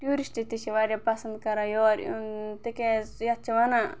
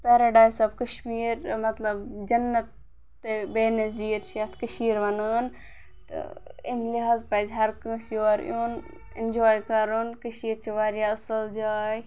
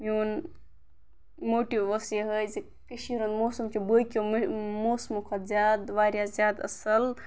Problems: background sounds at intervals